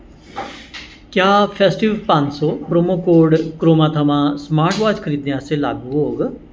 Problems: constant background noise, echo